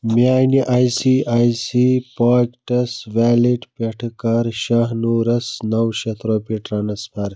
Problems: none marked